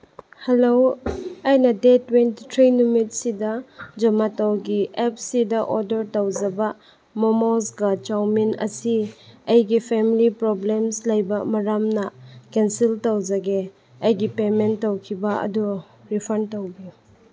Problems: none marked